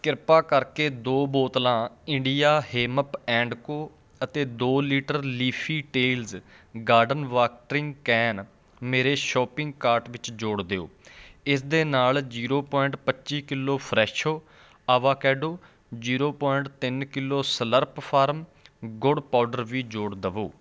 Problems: background sounds at intervals